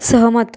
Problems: background sounds at intervals